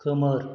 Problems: none marked